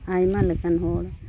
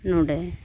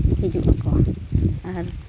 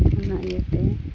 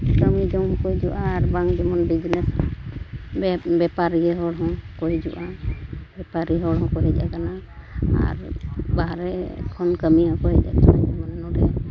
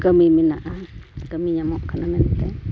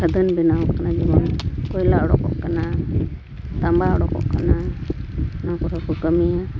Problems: constant background noise